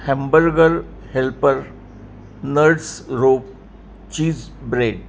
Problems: constant background noise